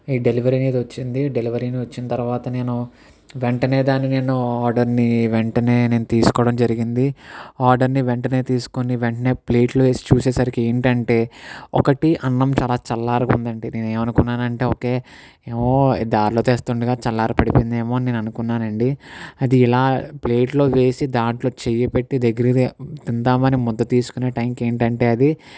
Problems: none marked